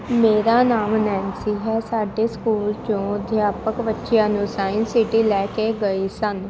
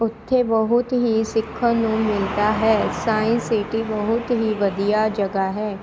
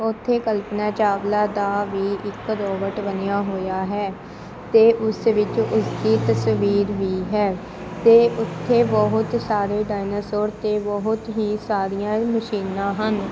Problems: constant background noise